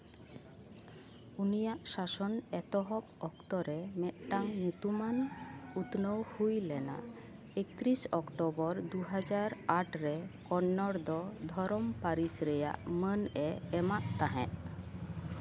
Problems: background sounds at intervals